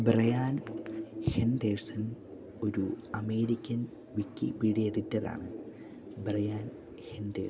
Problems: background sounds at intervals